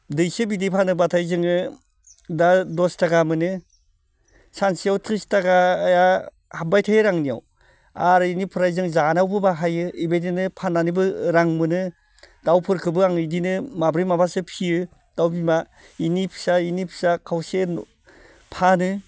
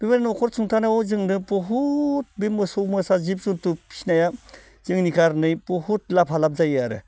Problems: none marked